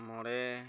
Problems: low volume